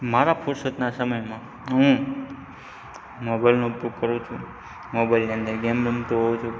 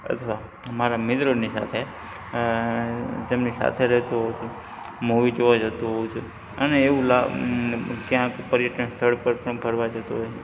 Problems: background sounds at intervals